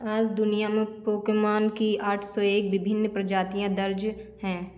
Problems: constant background noise